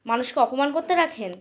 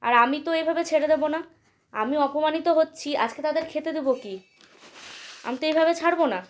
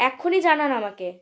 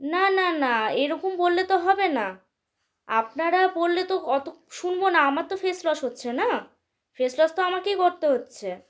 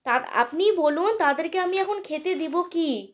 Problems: none marked